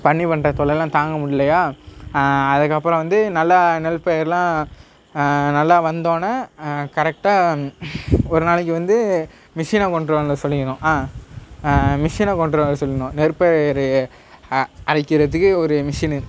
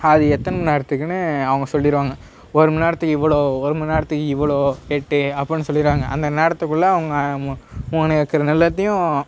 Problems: none marked